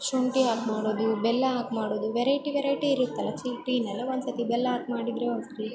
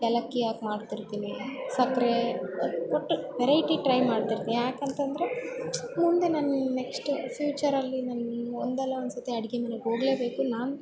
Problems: background sounds at intervals